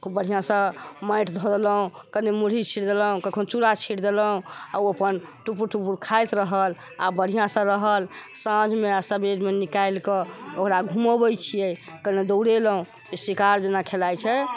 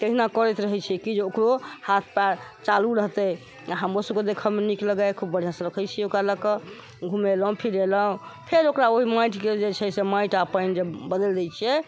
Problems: constant background noise